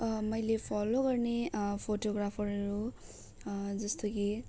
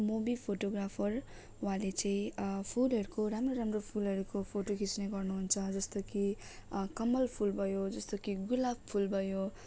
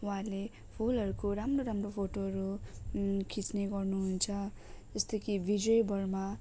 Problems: low volume